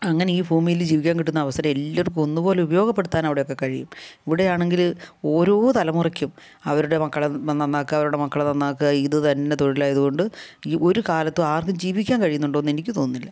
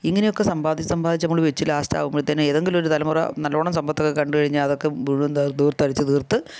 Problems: low volume